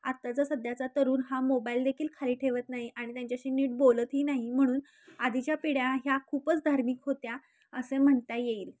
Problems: constant background noise, background conversations at intervals